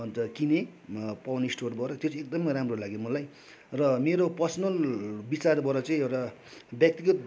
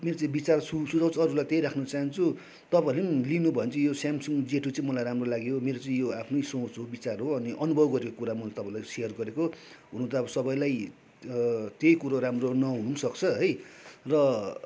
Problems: none marked